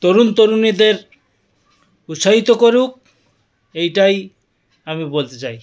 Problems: none marked